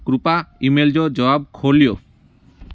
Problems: constant background noise